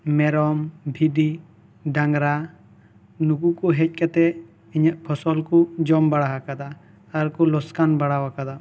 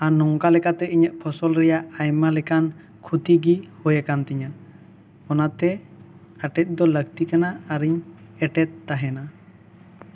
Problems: none marked